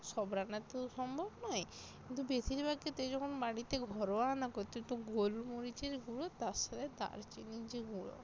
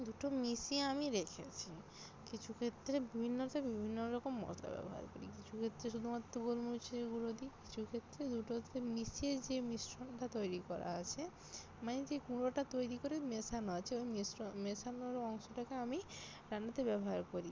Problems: none marked